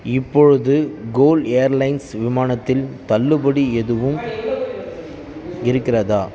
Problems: background conversations at intervals